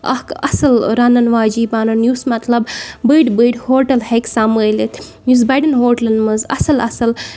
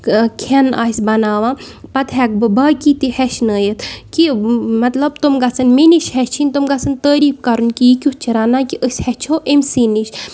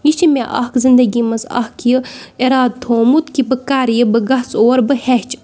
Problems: background sounds at intervals